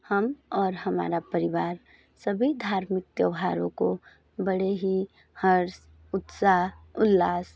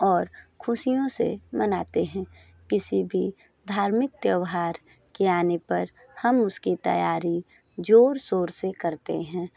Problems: none marked